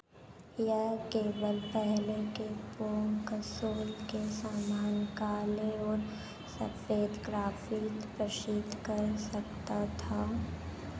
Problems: constant background noise